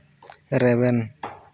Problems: none marked